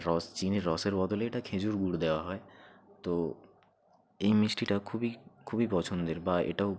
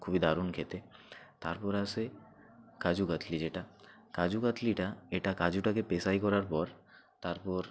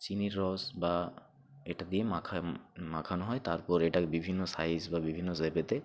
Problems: background sounds at intervals